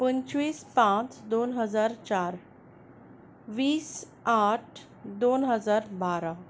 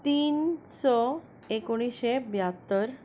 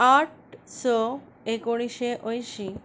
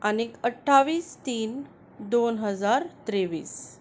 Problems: none marked